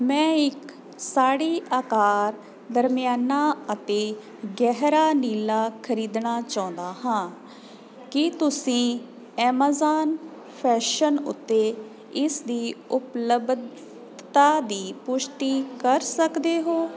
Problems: constant background noise